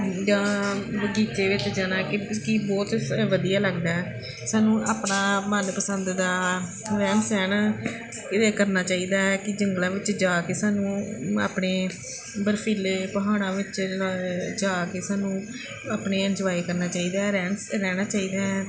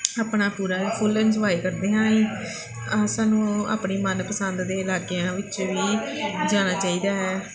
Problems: none marked